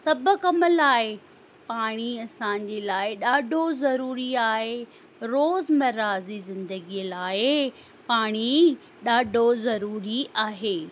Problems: constant background noise